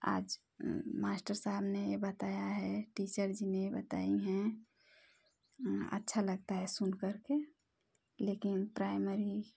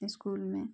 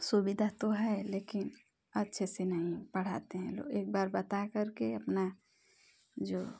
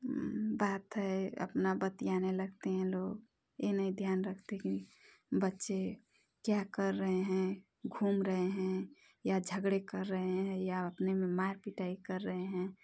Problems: none marked